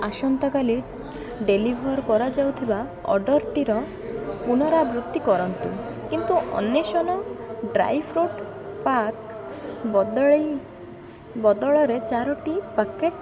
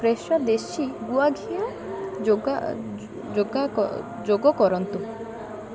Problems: constant background noise, continuous background conversations